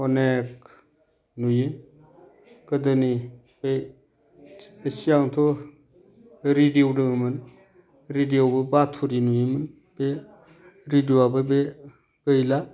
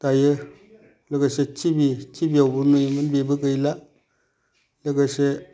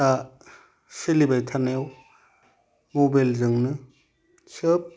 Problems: none marked